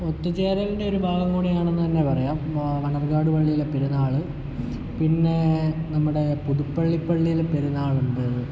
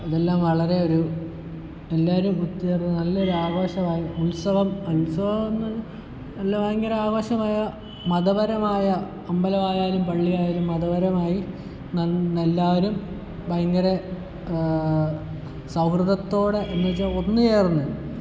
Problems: constant background noise, low volume